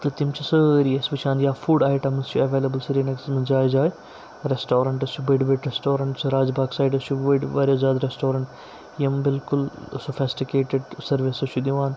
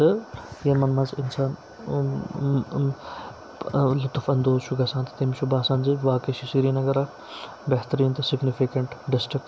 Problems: none marked